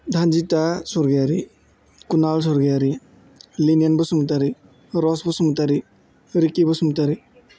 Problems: none marked